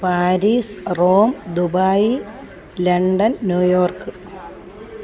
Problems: constant background noise